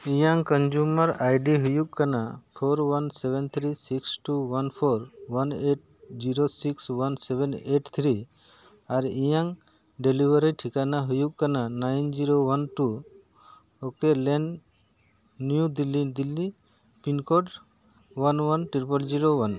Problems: none marked